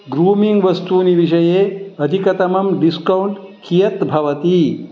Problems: constant background noise